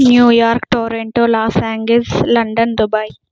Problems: background sounds at intervals